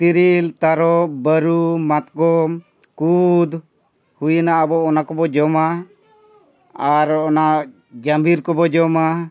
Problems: background conversations at intervals